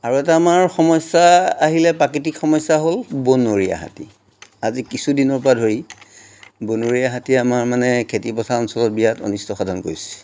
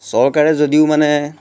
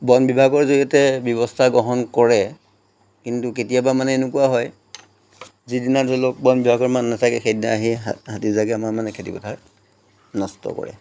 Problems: none marked